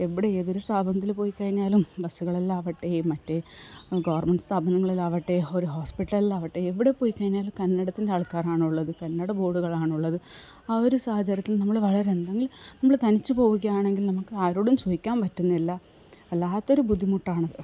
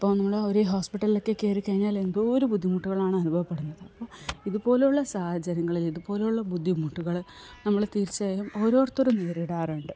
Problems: background sounds at intervals, low volume